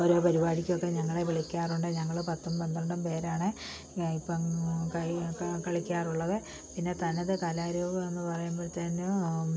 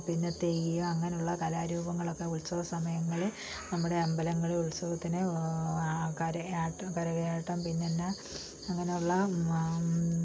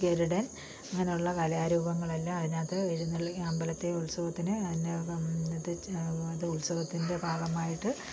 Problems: low volume